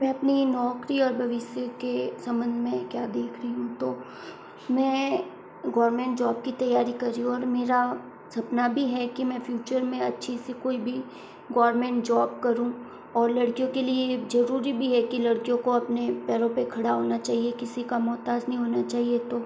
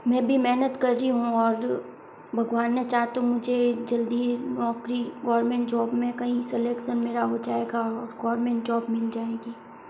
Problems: constant background noise